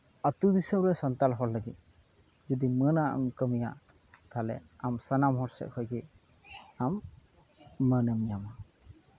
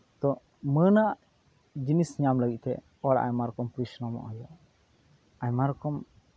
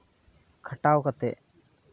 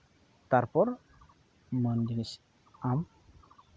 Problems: background sounds at intervals